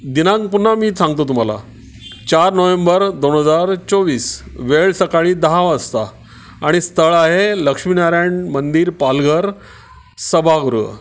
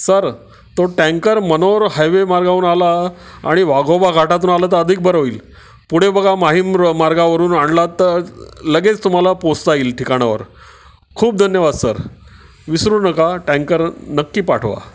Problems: constant background noise